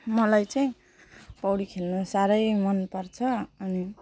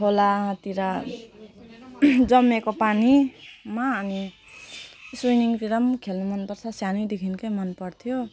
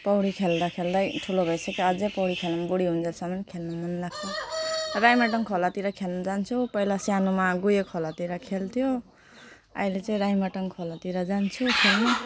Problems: background sounds at intervals